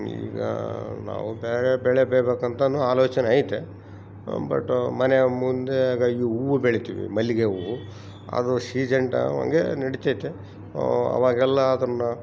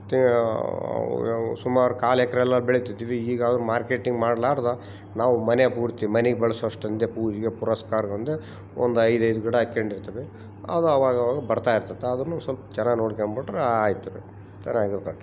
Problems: none marked